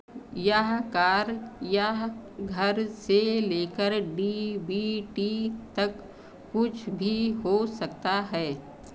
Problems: constant background noise